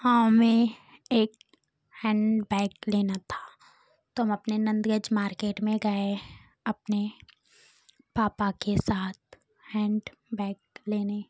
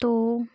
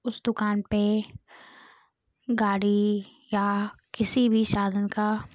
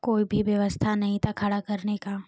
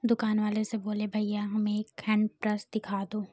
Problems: constant background noise